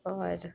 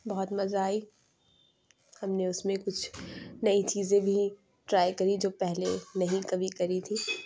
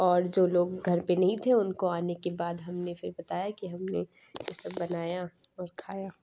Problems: constant background noise